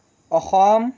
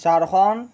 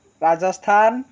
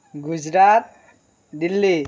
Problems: constant background noise